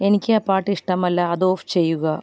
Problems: none marked